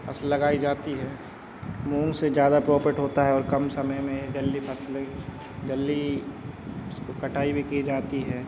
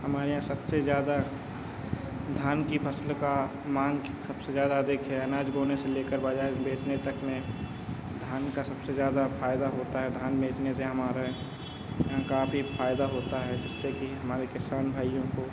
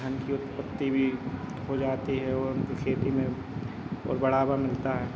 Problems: background sounds at intervals